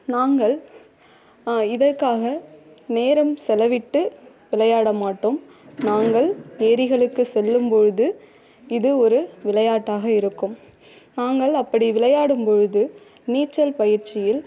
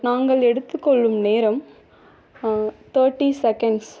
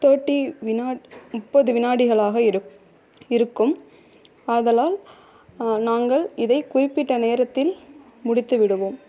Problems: low volume